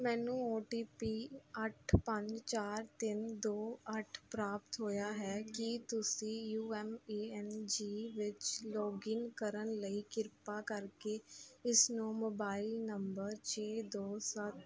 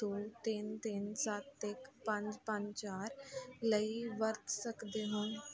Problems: none marked